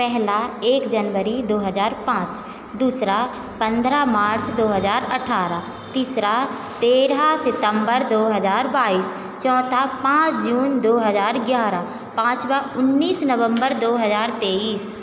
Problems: constant background noise